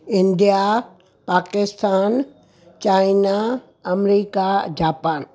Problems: constant background noise